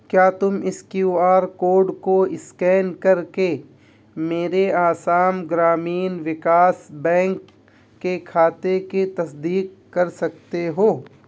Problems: none marked